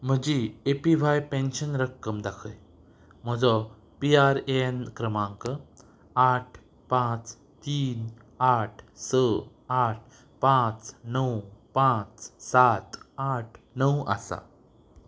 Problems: background sounds at intervals